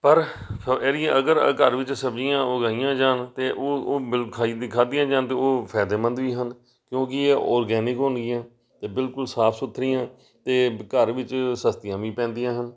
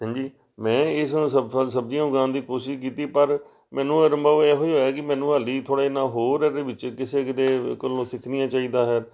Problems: none marked